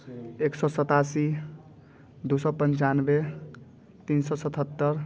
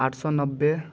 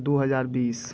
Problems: none marked